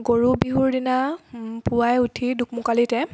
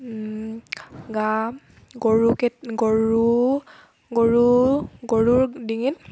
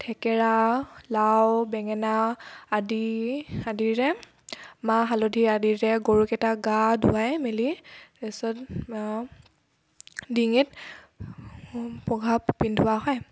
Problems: background sounds at intervals